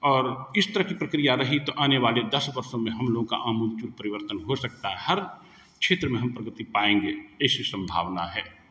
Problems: constant background noise, echo